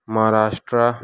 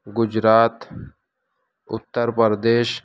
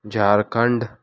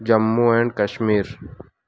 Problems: none marked